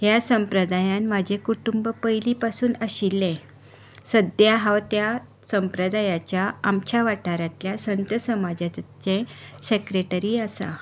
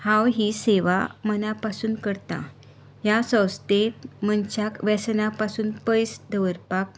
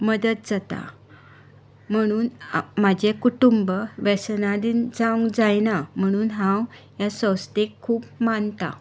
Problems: constant background noise